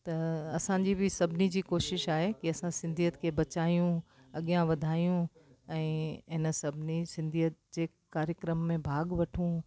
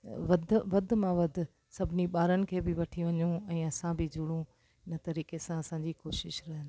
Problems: constant background noise